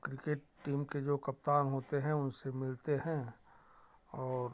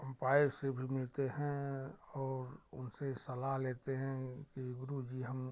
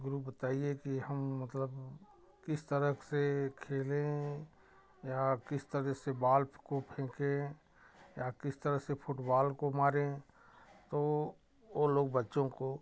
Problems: background sounds at intervals